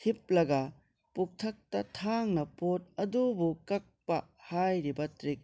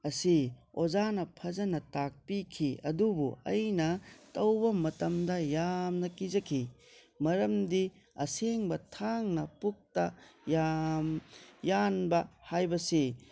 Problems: constant background noise